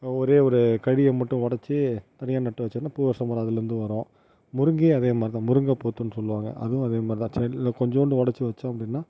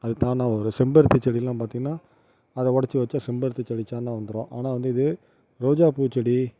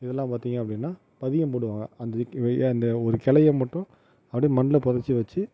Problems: none marked